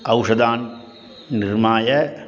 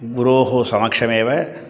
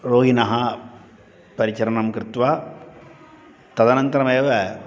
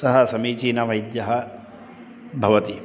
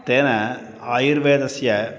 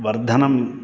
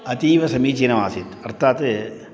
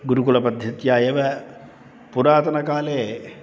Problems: constant background noise